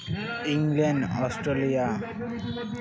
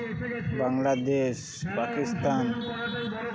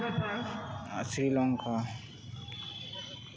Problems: continuous background conversations